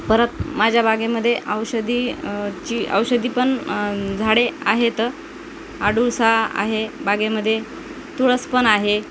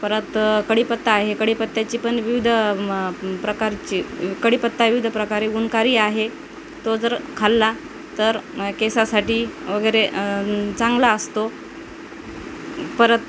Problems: constant background noise